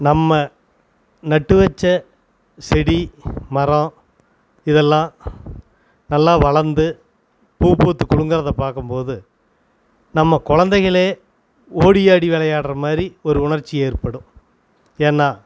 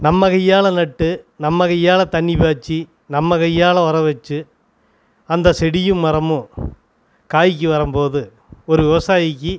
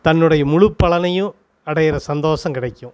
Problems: constant background noise